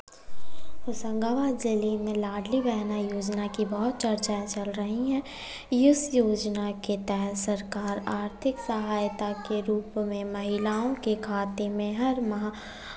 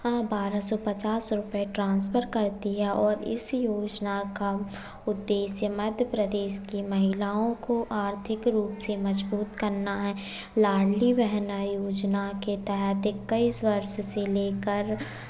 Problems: none marked